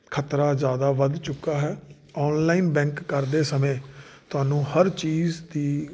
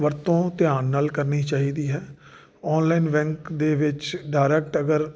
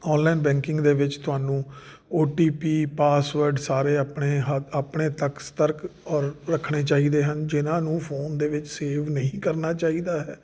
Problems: none marked